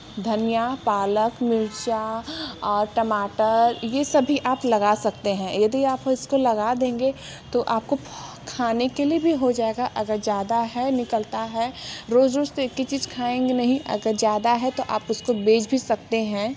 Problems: constant background noise